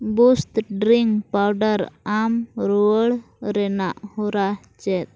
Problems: none marked